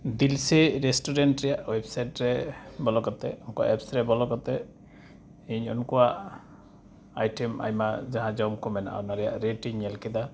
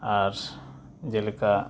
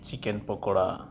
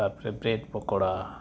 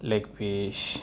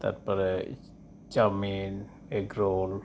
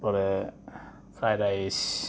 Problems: constant background noise